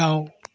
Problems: none marked